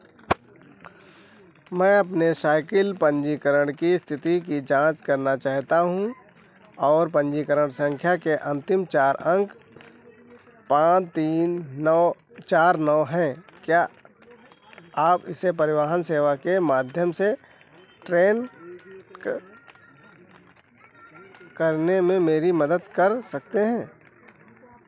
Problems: background sounds at intervals